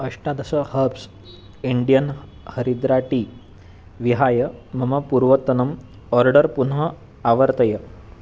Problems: constant background noise